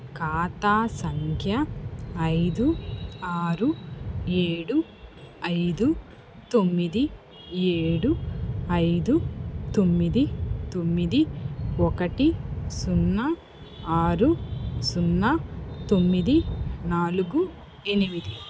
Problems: constant background noise